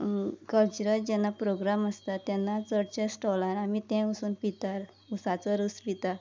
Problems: background conversations at intervals, low volume